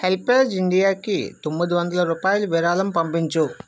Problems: constant background noise